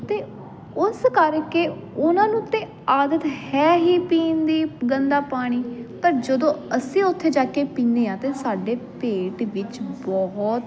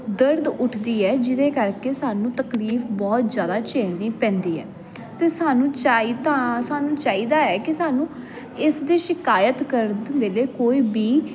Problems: constant background noise